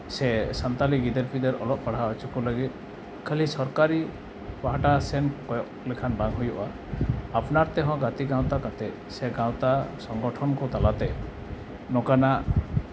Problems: background sounds at intervals